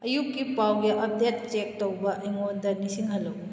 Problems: constant background noise